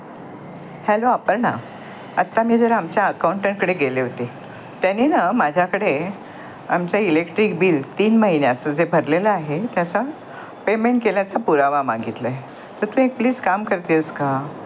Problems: constant background noise